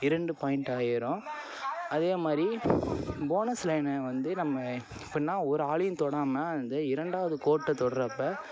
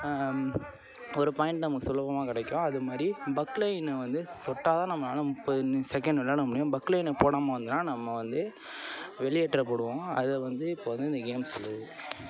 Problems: constant background noise, continuous background conversations